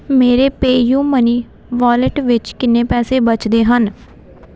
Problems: constant background noise